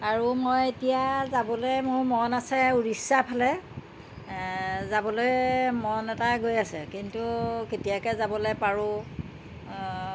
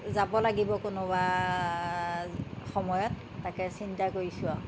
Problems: constant background noise